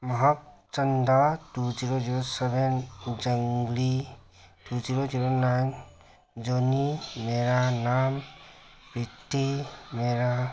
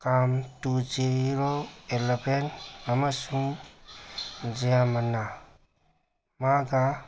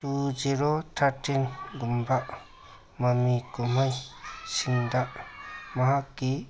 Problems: background sounds at intervals